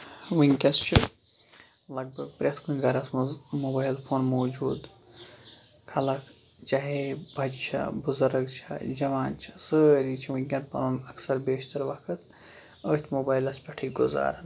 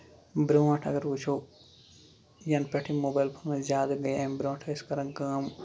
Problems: background sounds at intervals, low volume